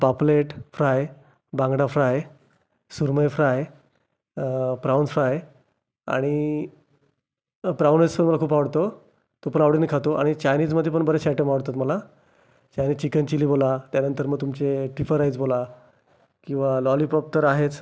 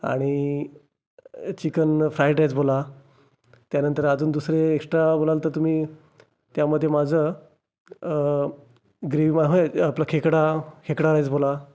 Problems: constant background noise, continuous background conversations